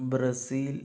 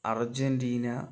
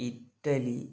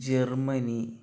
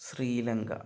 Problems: low volume